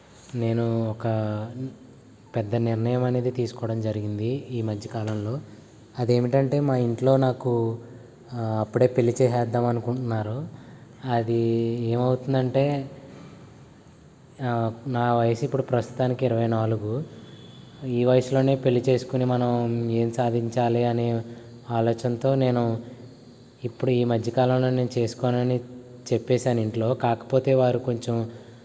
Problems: constant background noise